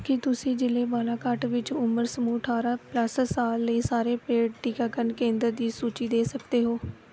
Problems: none marked